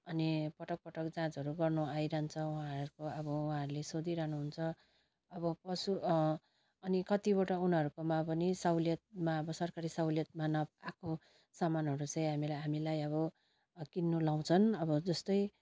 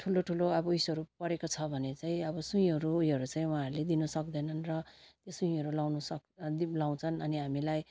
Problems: constant background noise